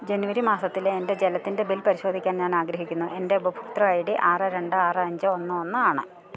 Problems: none marked